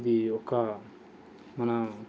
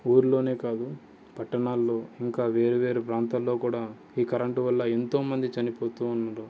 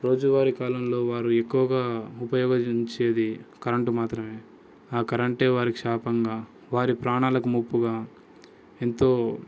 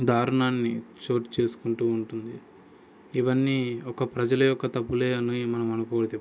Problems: background sounds at intervals, background conversations at intervals